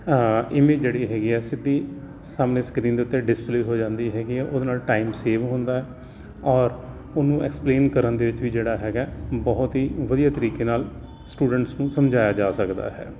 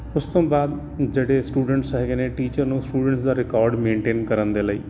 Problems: none marked